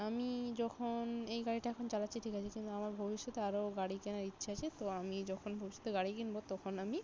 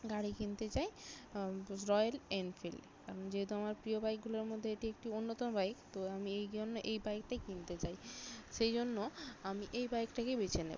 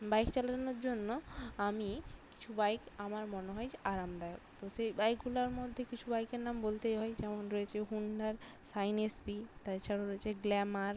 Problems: none marked